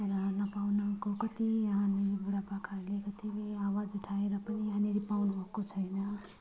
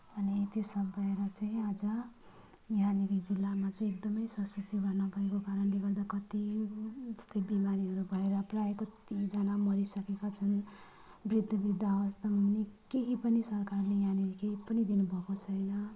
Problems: low volume